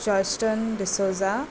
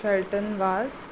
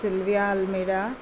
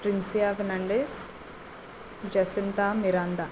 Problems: constant background noise